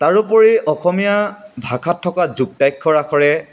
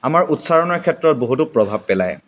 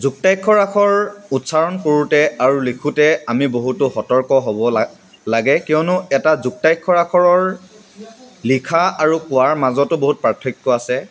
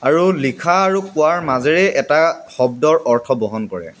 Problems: none marked